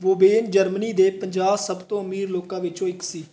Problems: background sounds at intervals